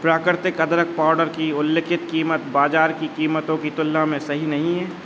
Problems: constant background noise